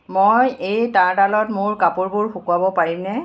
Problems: none marked